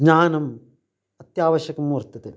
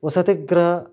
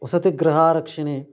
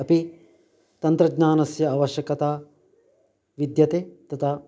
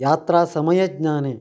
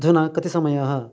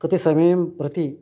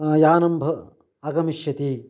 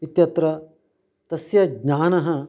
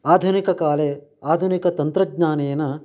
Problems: none marked